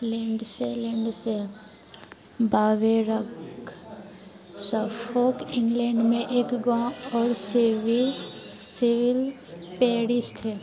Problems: constant background noise